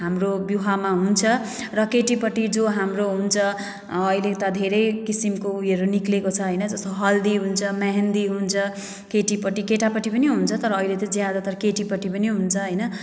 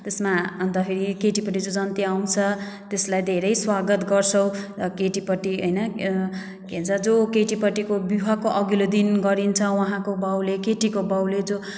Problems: none marked